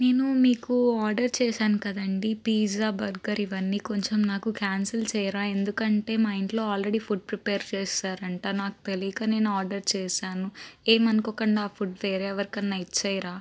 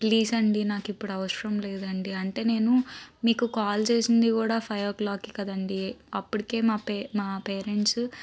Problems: constant background noise